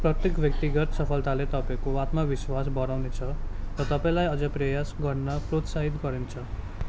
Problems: background sounds at intervals